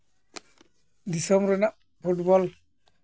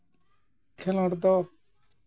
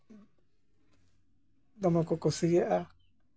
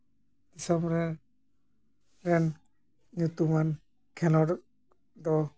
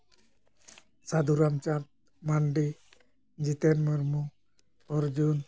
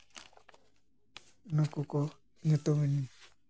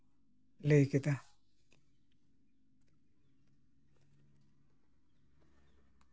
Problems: none marked